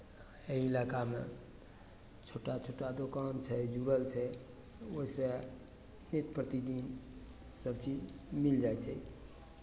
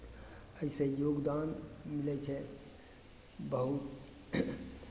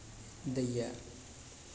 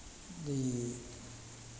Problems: none marked